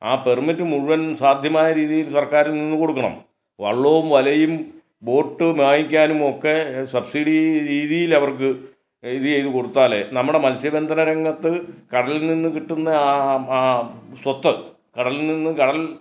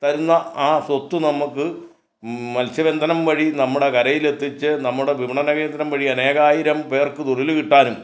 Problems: none marked